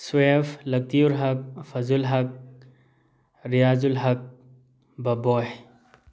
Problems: background sounds at intervals